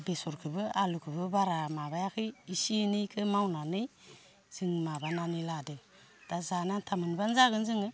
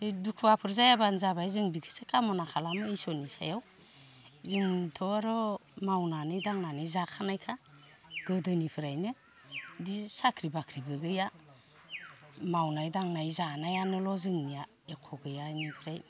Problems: none marked